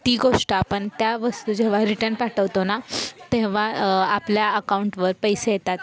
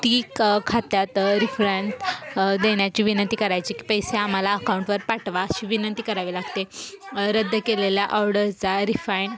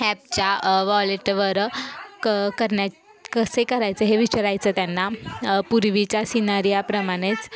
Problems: constant background noise, continuous background conversations